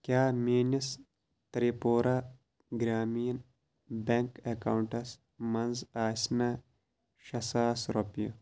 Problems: constant background noise